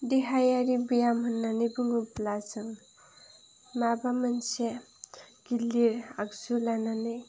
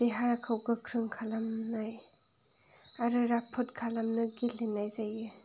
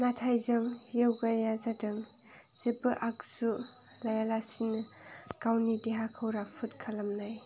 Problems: none marked